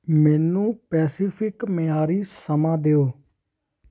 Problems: constant background noise